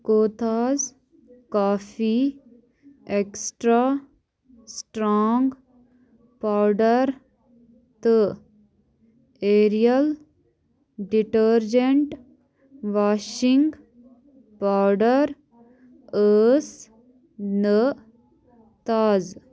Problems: background sounds at intervals